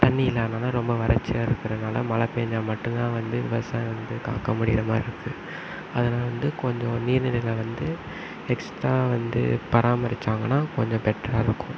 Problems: constant background noise